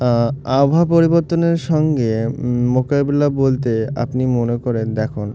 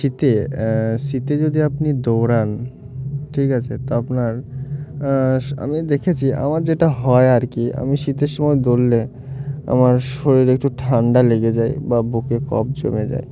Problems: none marked